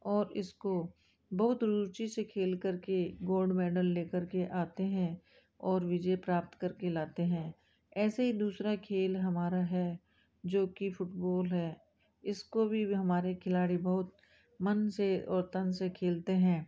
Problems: background sounds at intervals